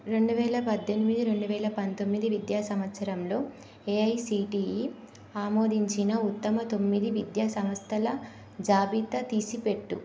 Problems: constant background noise